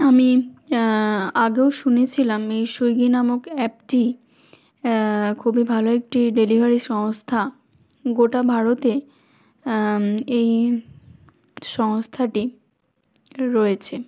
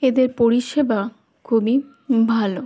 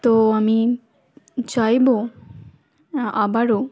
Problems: background sounds at intervals